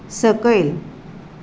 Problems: constant background noise